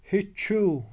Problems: background sounds at intervals